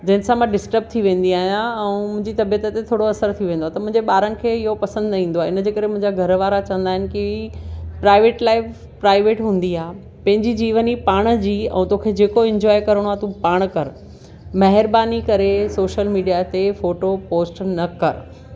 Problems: none marked